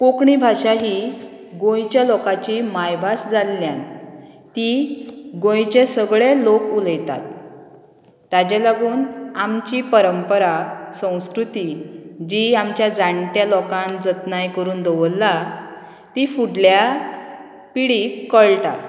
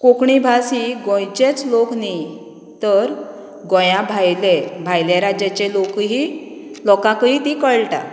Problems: background sounds at intervals